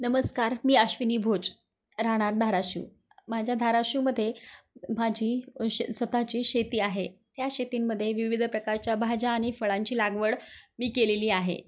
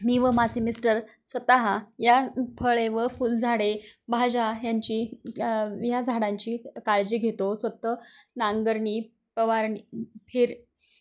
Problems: constant background noise, background conversations at intervals